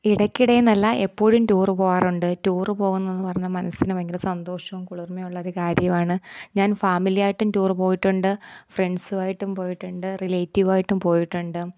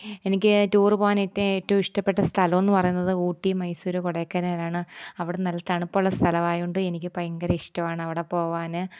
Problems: none marked